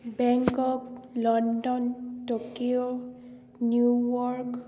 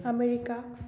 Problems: background conversations at intervals